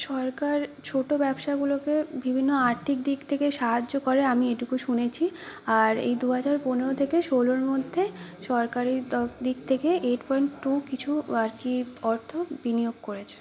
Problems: continuous background conversations